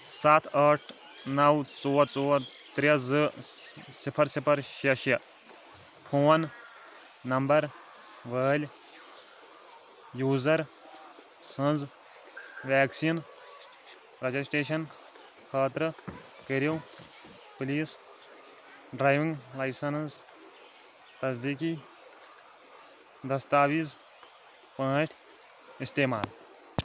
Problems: constant background noise, background conversations at intervals